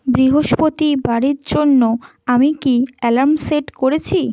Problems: none marked